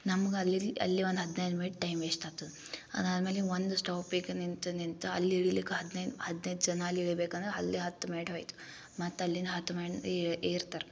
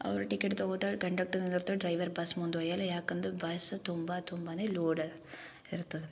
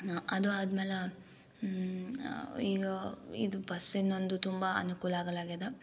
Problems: low volume